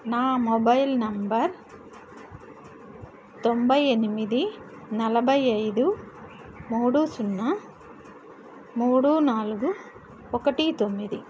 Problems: none marked